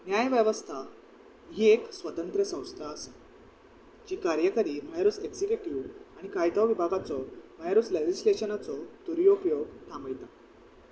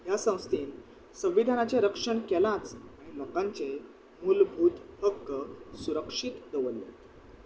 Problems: constant background noise